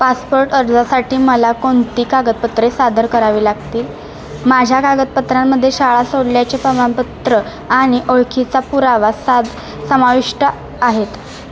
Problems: constant background noise, background conversations at intervals